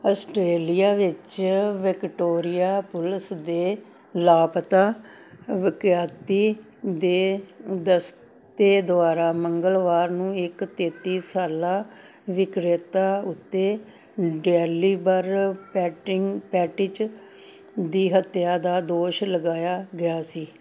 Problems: none marked